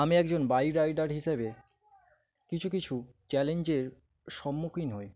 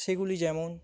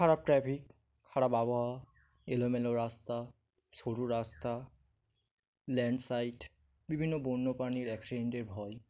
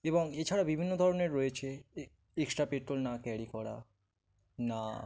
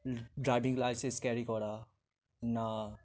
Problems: background sounds at intervals